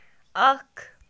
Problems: none marked